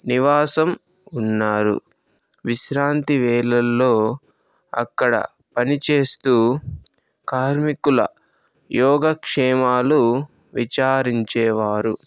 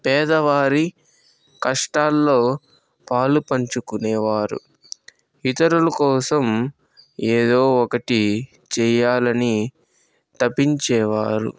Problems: none marked